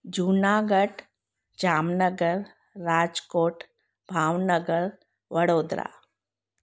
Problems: none marked